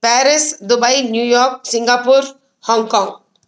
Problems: none marked